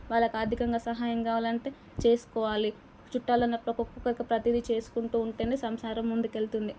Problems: background sounds at intervals